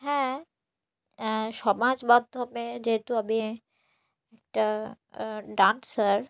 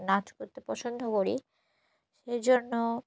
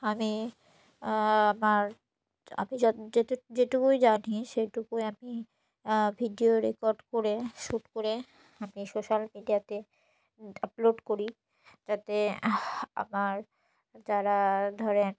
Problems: none marked